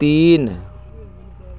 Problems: constant background noise, continuous background conversations